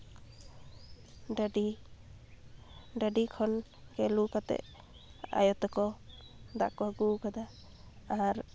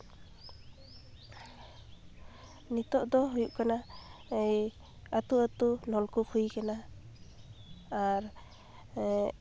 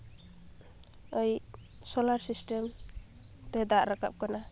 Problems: none marked